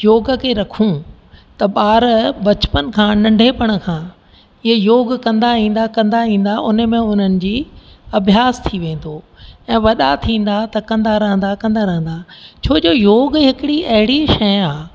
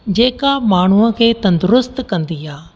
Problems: constant background noise, echo